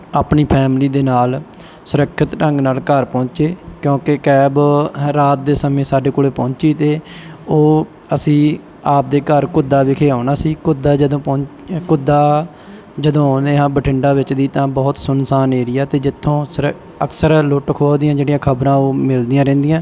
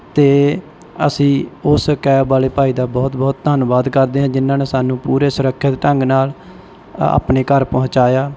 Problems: background sounds at intervals